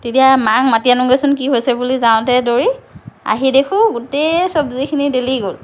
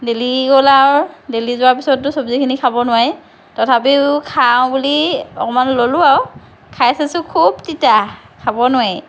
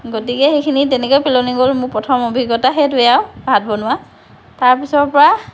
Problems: none marked